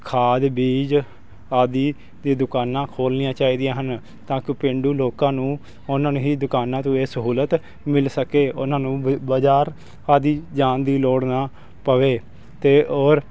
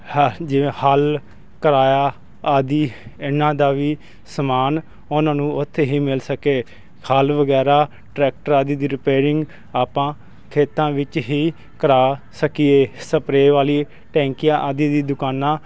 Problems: constant background noise